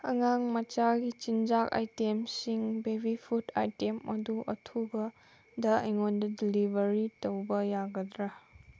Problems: background sounds at intervals